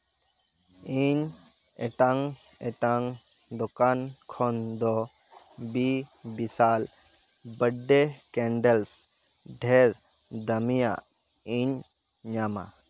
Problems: none marked